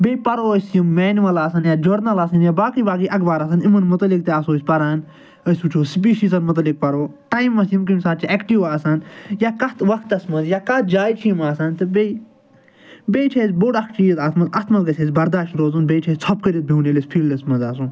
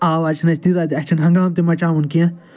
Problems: background sounds at intervals